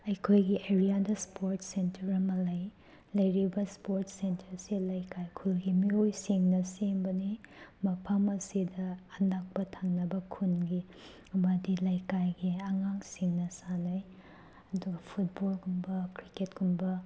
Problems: background sounds at intervals